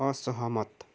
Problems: none marked